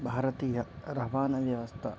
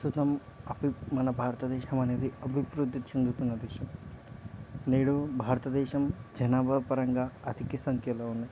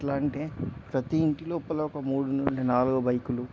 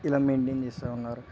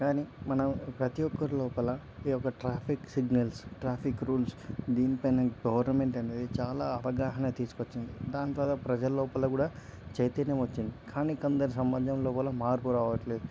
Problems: background conversations at intervals